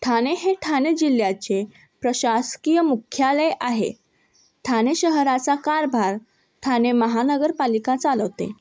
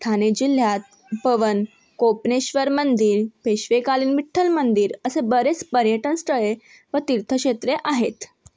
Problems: background sounds at intervals, background conversations at intervals